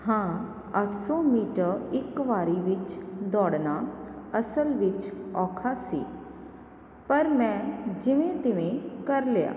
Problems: constant background noise